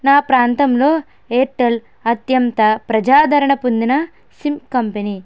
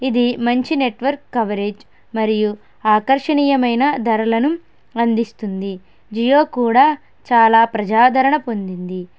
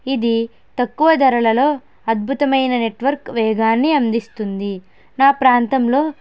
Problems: none marked